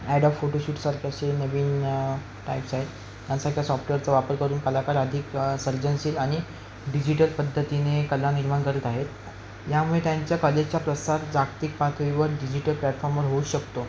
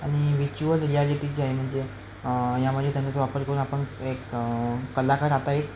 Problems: constant background noise